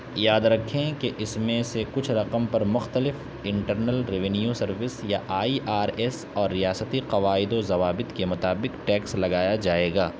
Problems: constant background noise